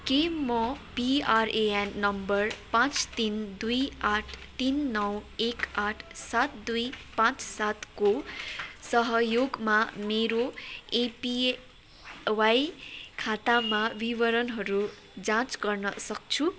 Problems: none marked